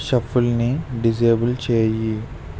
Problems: constant background noise